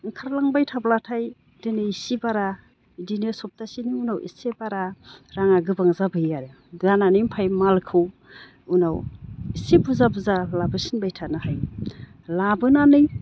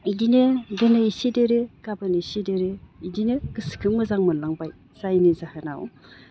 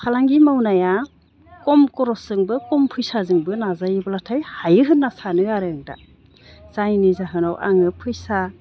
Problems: none marked